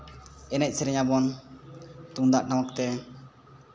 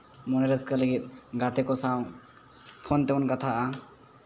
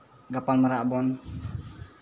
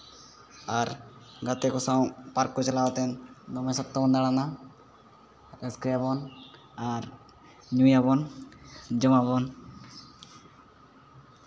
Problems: background sounds at intervals